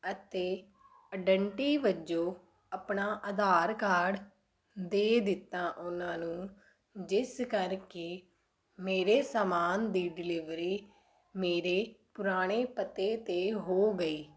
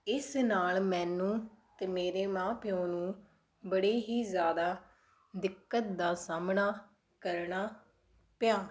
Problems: background sounds at intervals